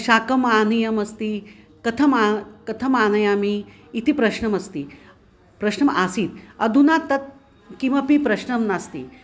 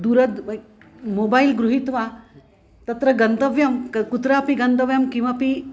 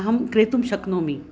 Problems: constant background noise